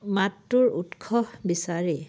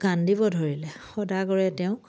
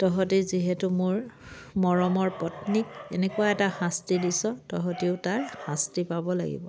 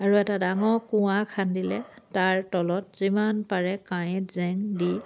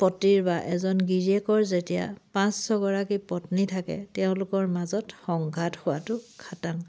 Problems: background sounds at intervals